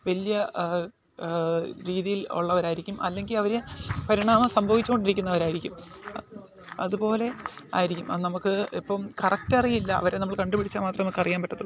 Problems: low volume